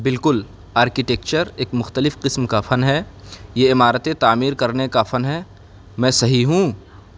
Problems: background sounds at intervals